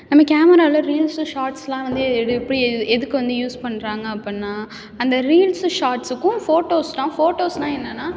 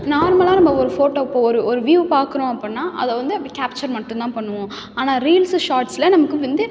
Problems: background sounds at intervals